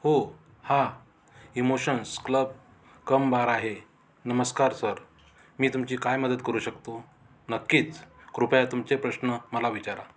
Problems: background sounds at intervals